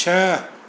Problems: constant background noise, echo